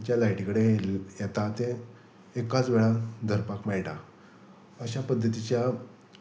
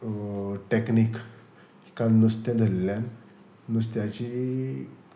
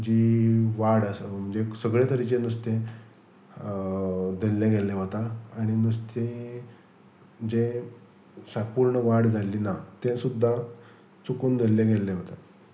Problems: none marked